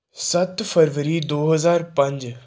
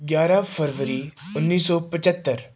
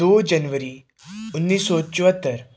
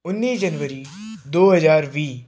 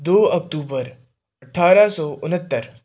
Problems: background sounds at intervals